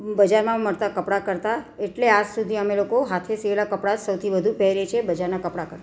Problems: none marked